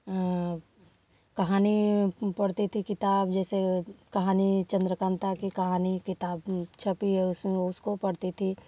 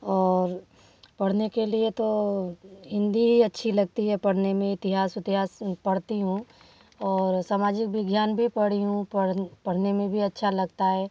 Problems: background sounds at intervals